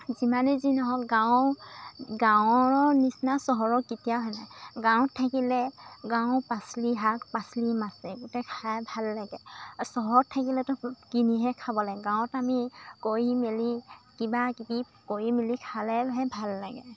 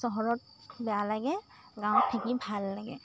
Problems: constant background noise